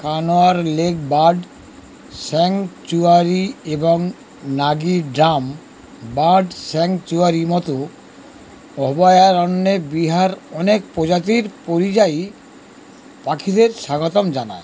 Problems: constant background noise